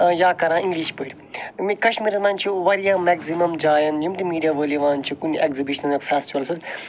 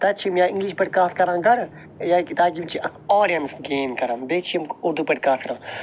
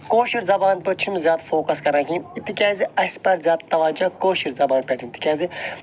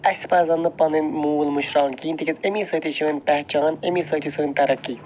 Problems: background sounds at intervals